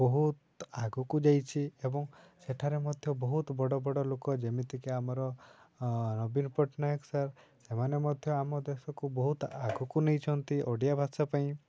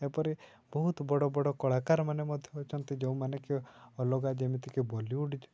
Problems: constant background noise